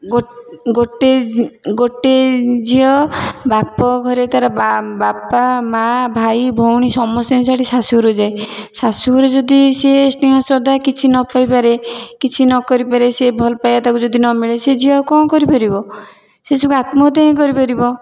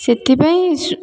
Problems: background sounds at intervals, background conversations at intervals